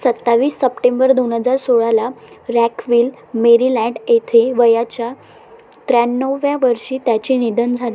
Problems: constant background noise